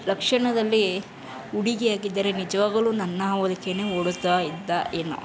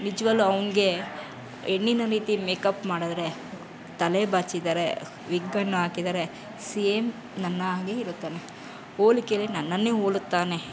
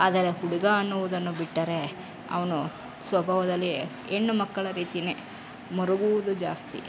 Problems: background sounds at intervals